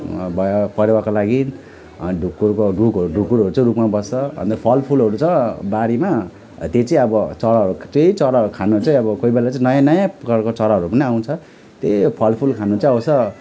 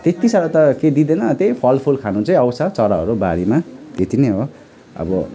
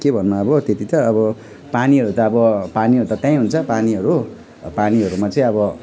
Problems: none marked